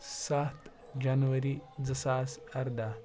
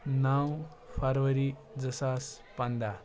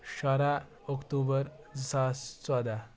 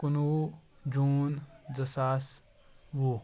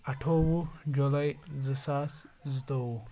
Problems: background sounds at intervals, low volume